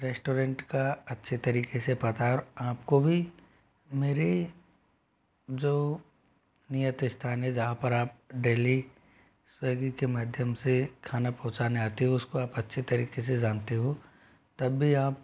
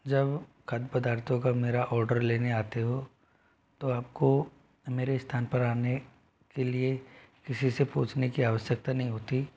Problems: none marked